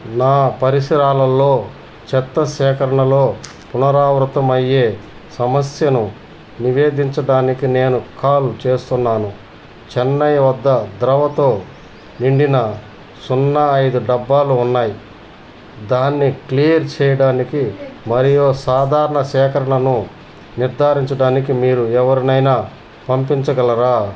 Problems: none marked